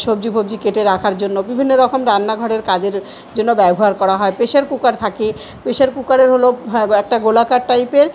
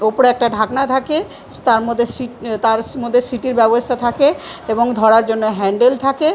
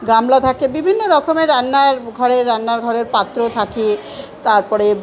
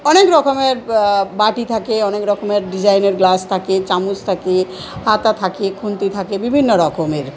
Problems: continuous background conversations